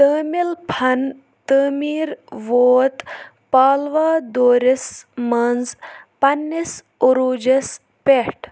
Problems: none marked